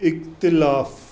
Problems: constant background noise